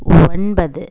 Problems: background sounds at intervals